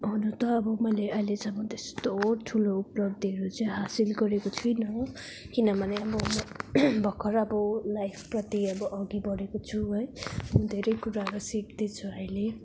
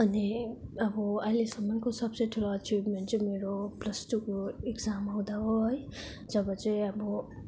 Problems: none marked